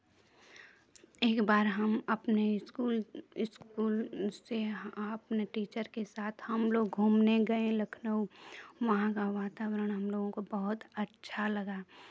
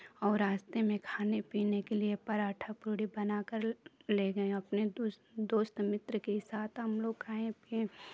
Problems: background sounds at intervals